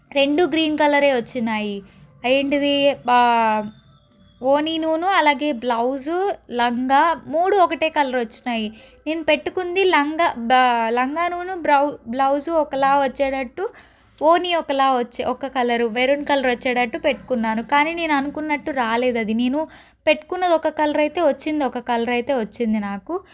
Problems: background sounds at intervals